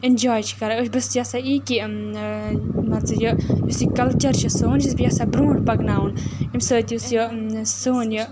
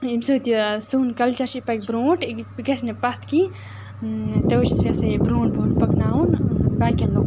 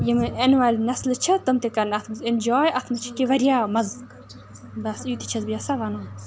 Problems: constant background noise